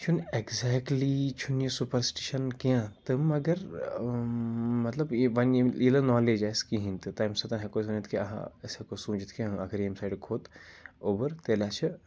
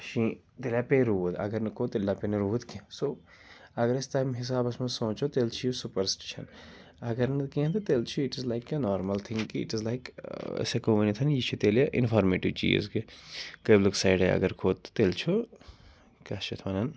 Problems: constant background noise